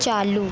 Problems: constant background noise, low volume